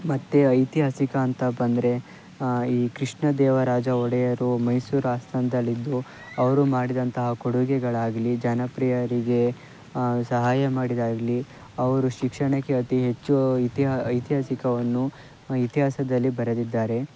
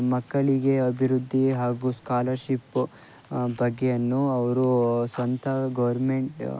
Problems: background sounds at intervals, low volume